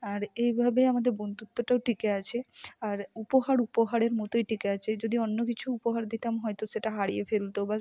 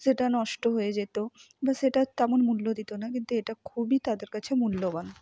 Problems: none marked